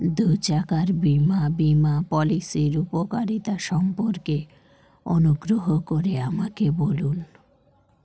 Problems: constant background noise